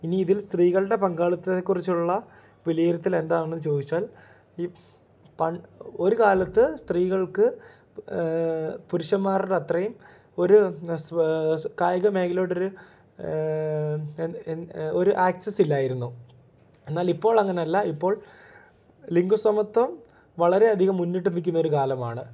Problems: none marked